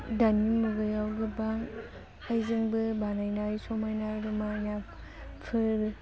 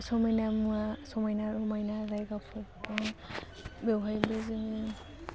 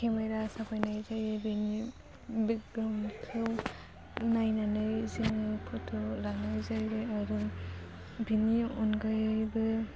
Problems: low volume